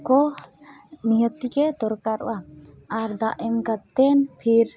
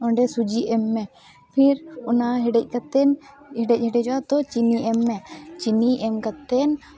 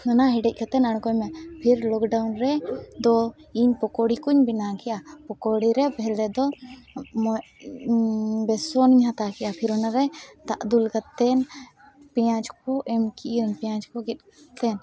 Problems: constant background noise, background conversations at intervals